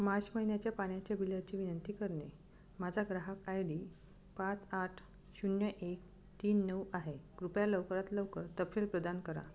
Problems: background sounds at intervals